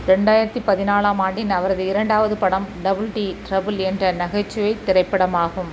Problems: constant background noise